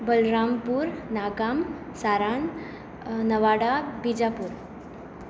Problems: constant background noise